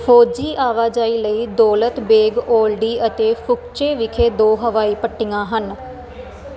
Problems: none marked